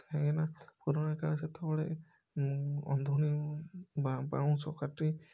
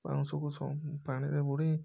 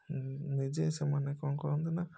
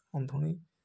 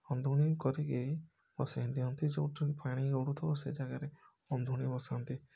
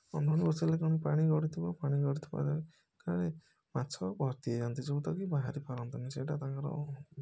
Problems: background sounds at intervals